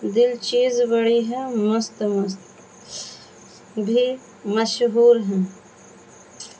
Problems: constant background noise